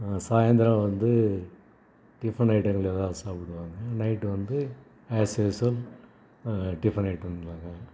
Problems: background sounds at intervals